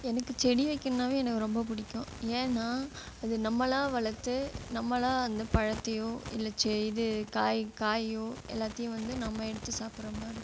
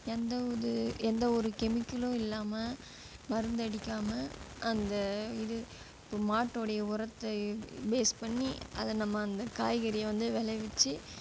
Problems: background sounds at intervals